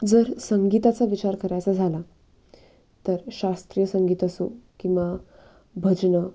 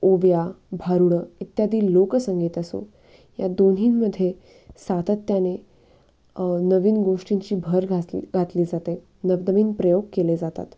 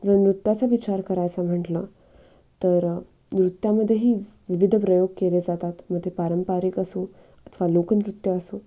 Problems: background sounds at intervals